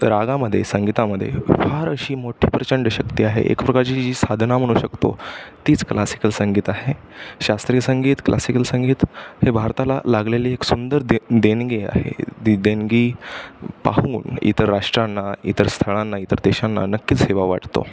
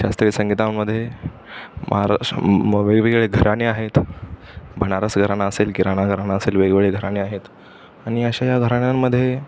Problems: constant background noise, background conversations at intervals